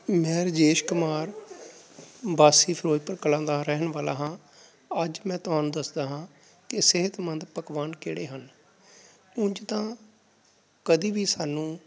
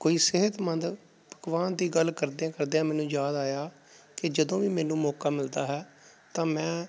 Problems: background sounds at intervals